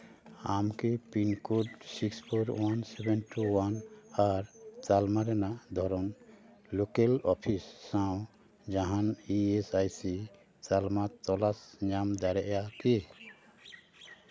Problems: constant background noise